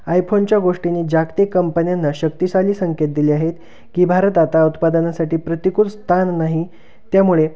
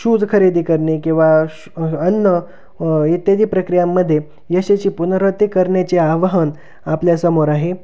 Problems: constant background noise